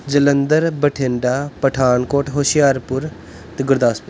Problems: background sounds at intervals